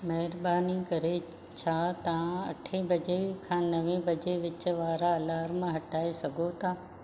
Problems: none marked